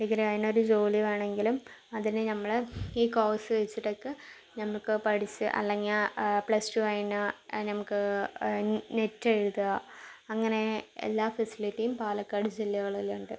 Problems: low volume